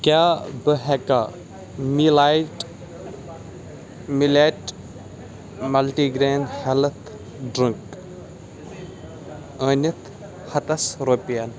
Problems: background sounds at intervals, background conversations at intervals